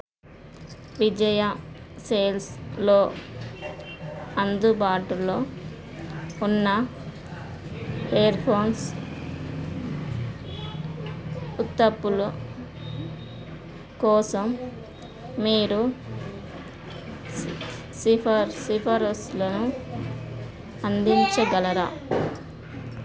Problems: background conversations at intervals